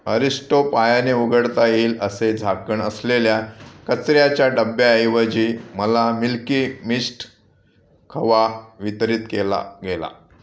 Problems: background sounds at intervals